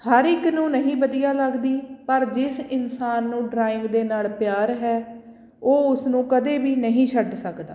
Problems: background sounds at intervals